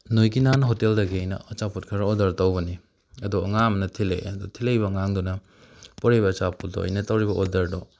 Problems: background sounds at intervals